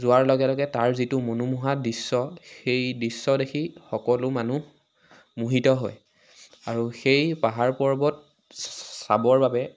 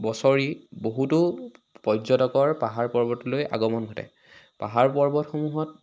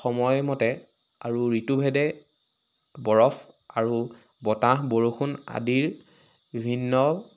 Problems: constant background noise